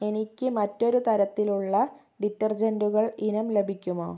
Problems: low volume